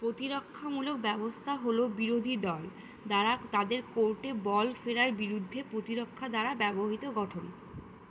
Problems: constant background noise